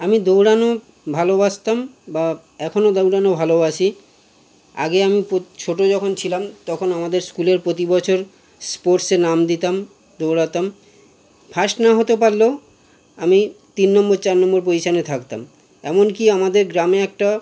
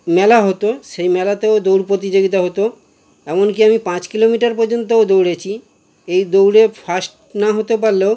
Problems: constant background noise